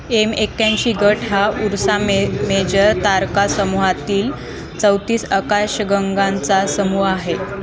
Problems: constant background noise, continuous background conversations